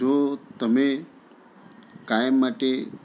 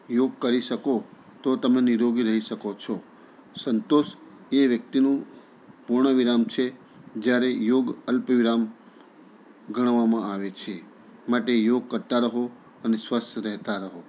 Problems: continuous background conversations